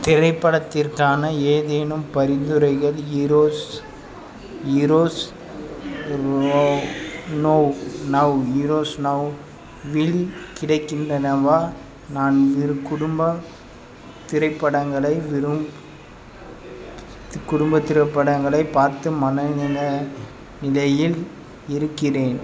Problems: constant background noise